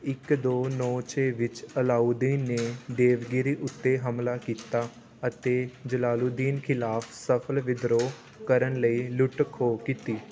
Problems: constant background noise